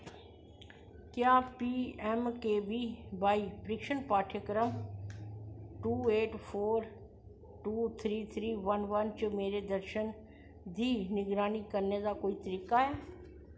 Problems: low volume